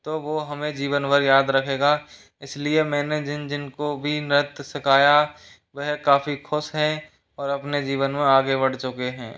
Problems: none marked